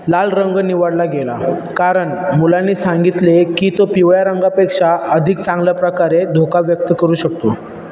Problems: constant background noise